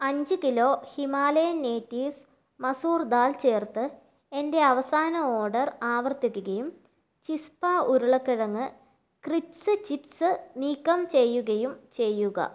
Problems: none marked